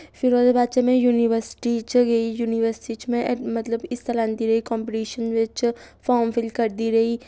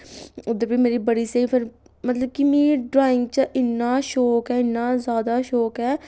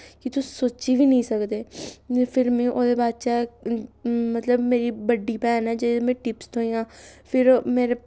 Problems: none marked